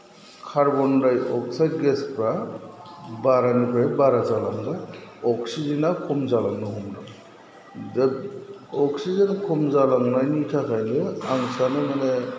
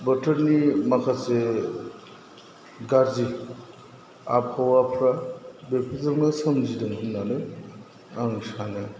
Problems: none marked